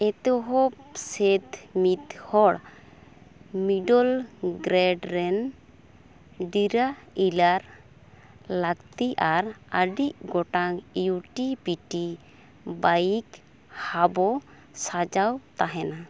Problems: constant background noise